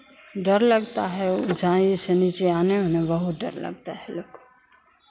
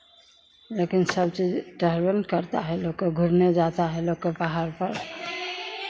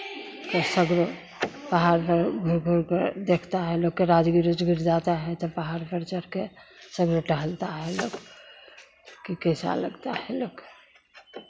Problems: constant background noise